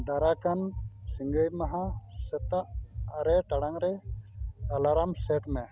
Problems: constant background noise